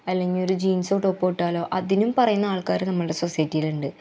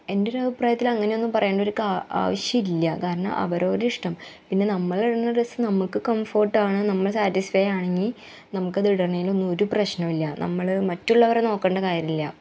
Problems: background sounds at intervals